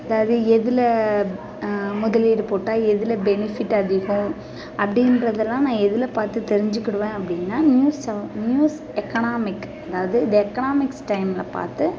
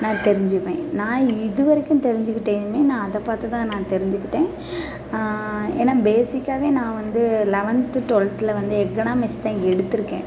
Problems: constant background noise